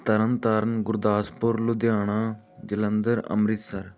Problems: background sounds at intervals